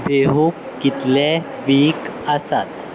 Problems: none marked